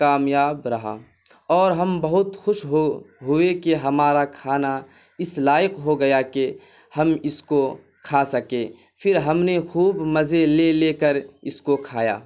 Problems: constant background noise